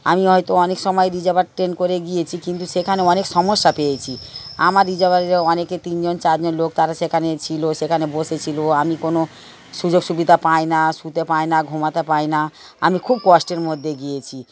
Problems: constant background noise